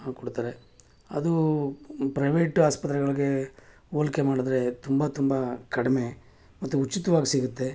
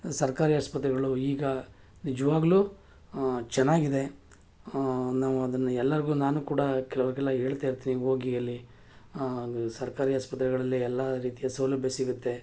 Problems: none marked